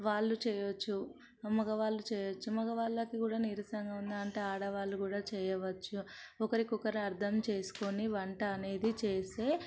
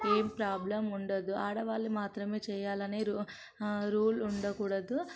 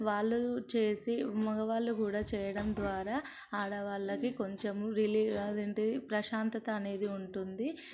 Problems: background sounds at intervals